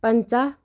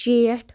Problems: none marked